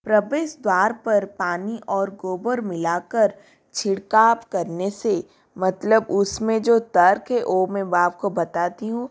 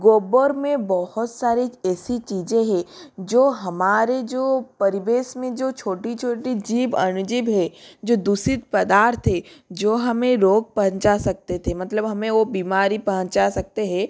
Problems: none marked